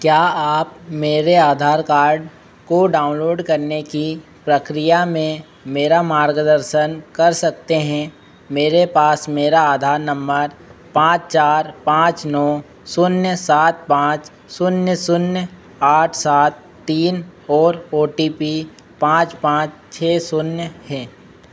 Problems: constant background noise